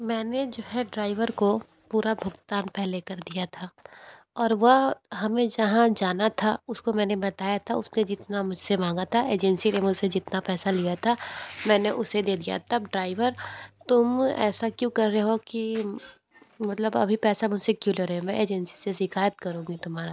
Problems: constant background noise, background conversations at intervals